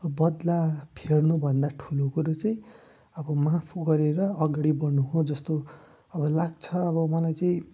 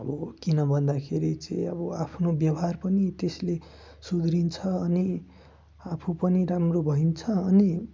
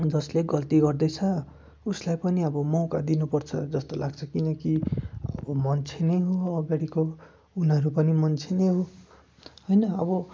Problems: background sounds at intervals